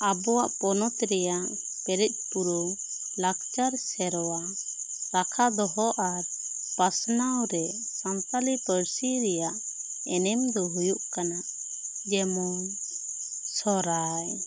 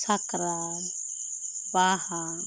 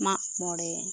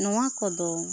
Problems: constant background noise